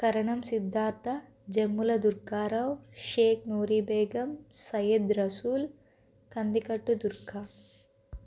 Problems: constant background noise